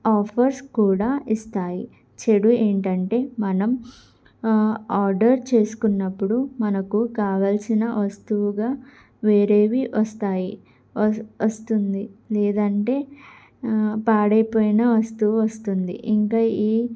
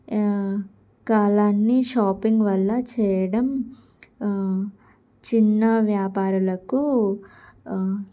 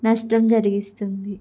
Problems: background sounds at intervals